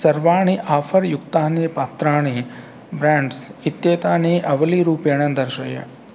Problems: constant background noise